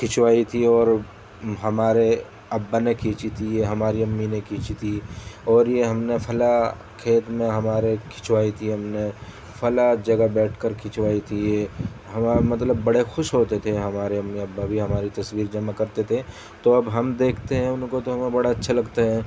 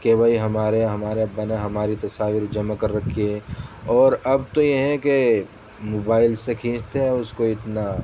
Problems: constant background noise